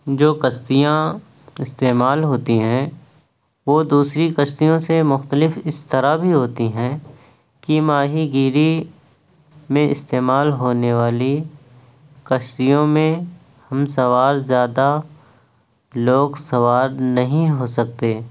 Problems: none marked